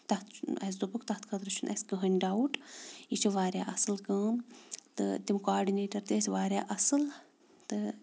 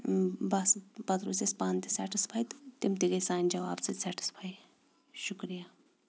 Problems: background sounds at intervals